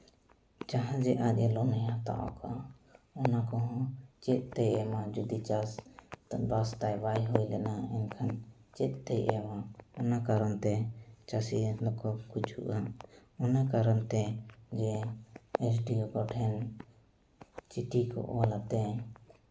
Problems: none marked